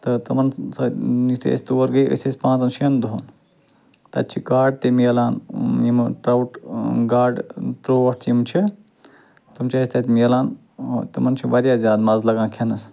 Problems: constant background noise